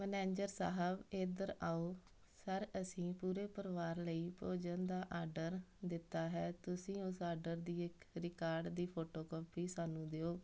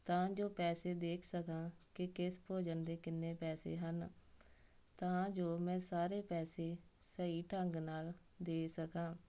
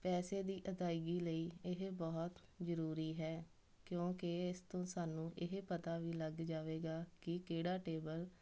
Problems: none marked